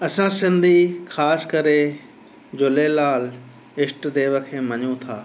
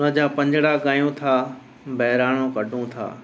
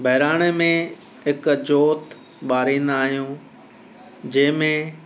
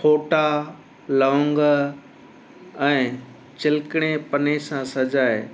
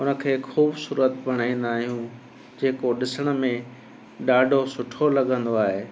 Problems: constant background noise